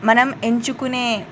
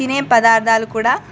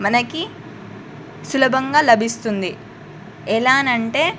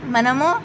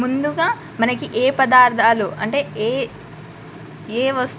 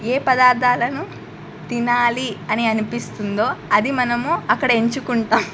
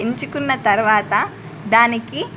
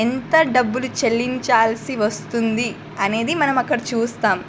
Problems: constant background noise